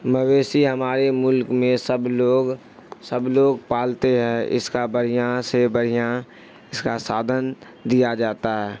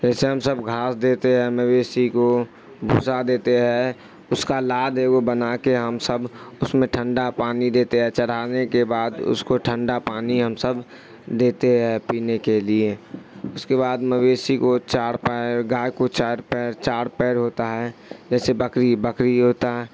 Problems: constant background noise